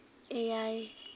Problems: none marked